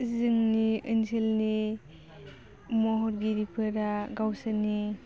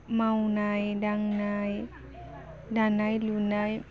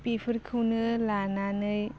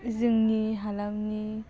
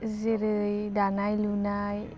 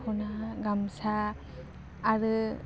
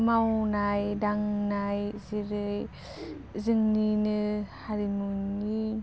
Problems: low volume